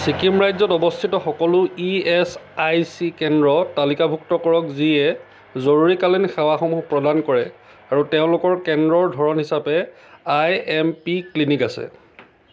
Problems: none marked